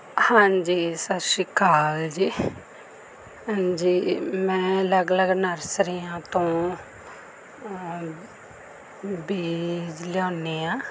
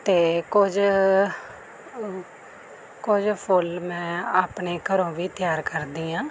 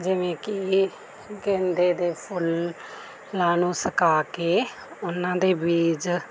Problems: none marked